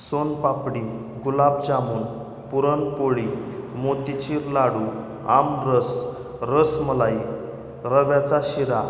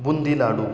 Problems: none marked